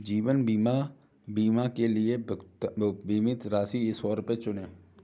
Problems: background sounds at intervals